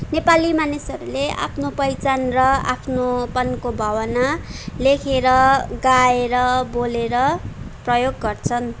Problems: none marked